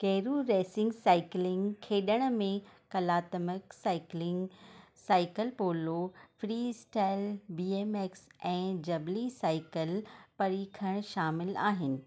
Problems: none marked